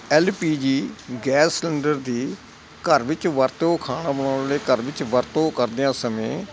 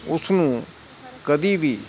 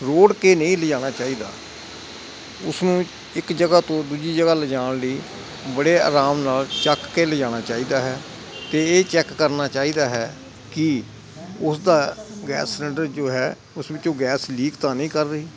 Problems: constant background noise